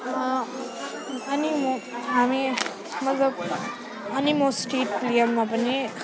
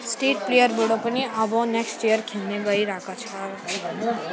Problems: none marked